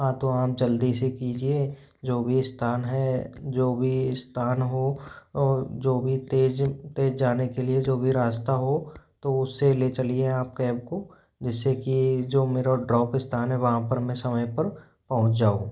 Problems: background sounds at intervals